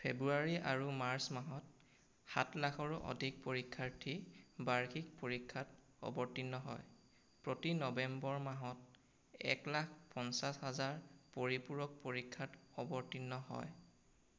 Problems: constant background noise